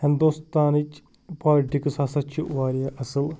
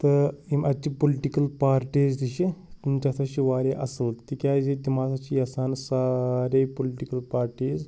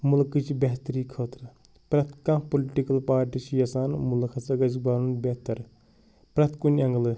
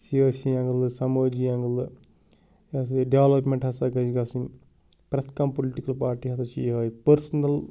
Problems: background sounds at intervals